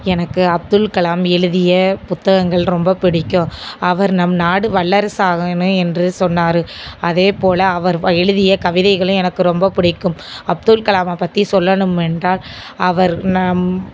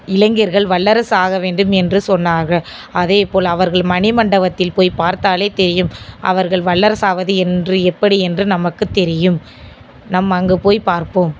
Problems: none marked